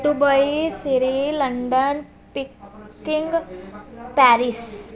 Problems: continuous background conversations